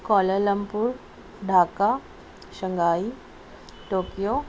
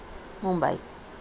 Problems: none marked